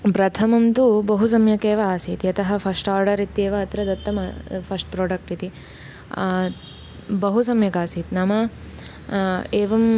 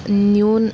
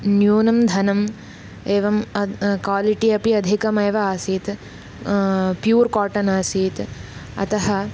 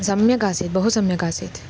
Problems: constant background noise